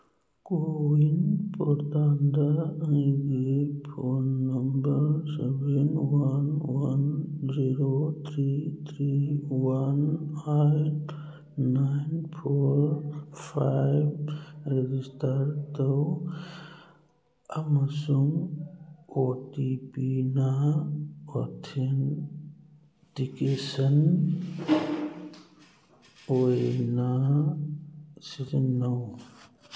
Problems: background sounds at intervals